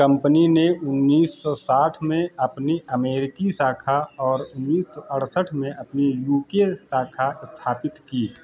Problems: none marked